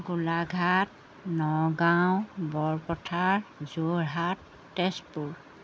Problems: none marked